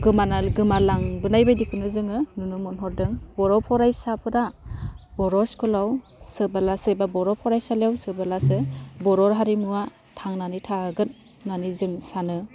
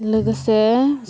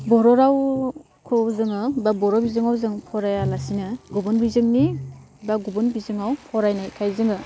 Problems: constant background noise